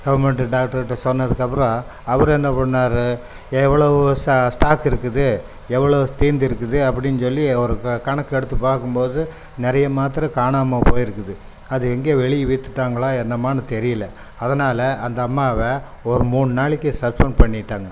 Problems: none marked